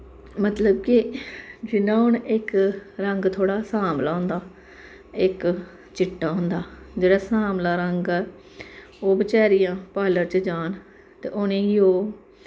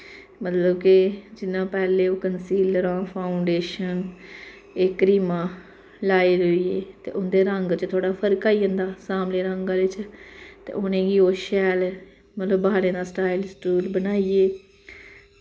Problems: background sounds at intervals, echo